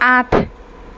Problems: constant background noise